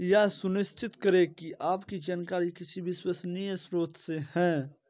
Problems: none marked